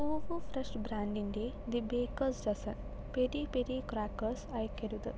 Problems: low volume